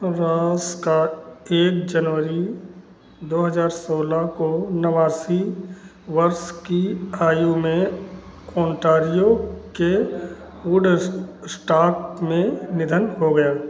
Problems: constant background noise, continuous background conversations